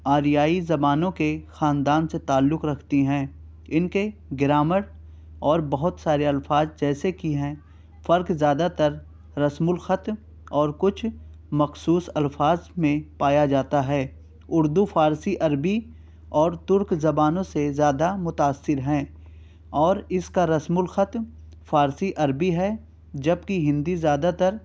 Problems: none marked